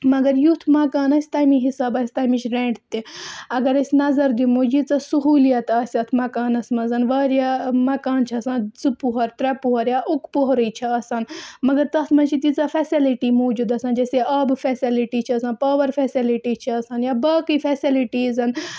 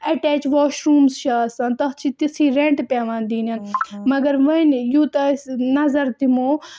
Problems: background sounds at intervals